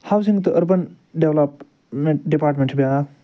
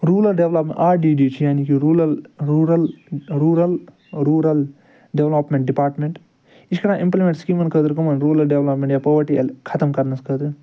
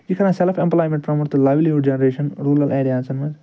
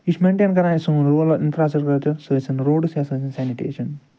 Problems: background sounds at intervals, background conversations at intervals